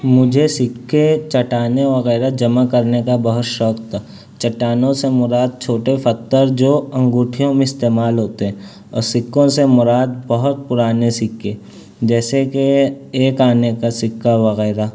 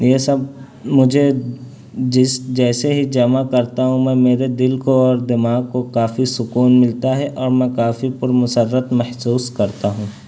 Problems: constant background noise